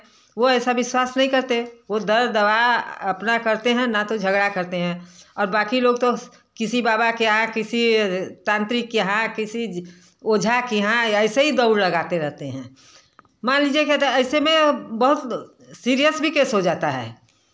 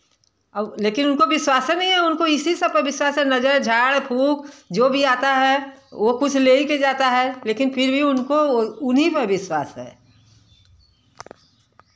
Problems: background sounds at intervals